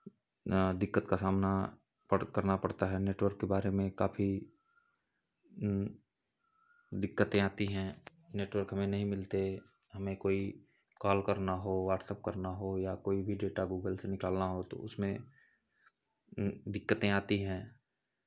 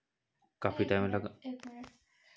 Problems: constant background noise, background conversations at intervals